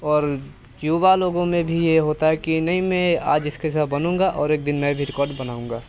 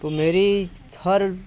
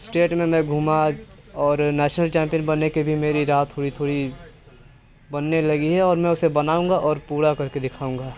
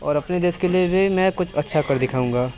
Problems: constant background noise